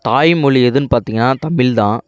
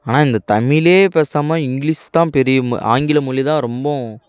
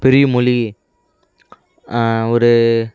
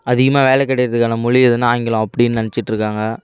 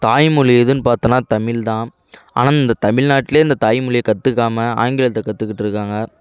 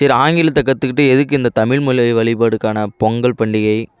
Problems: background conversations at intervals